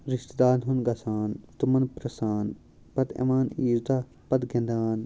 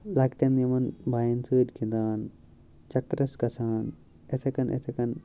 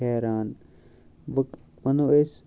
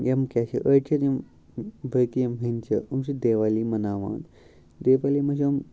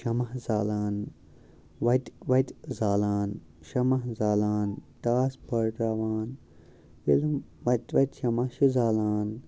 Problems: background sounds at intervals, background conversations at intervals